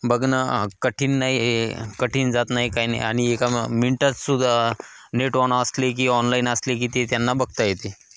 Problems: constant background noise, echo